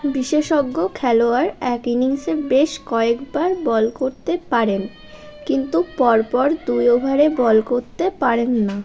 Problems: continuous background conversations